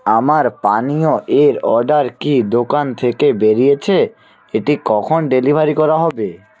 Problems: background conversations at intervals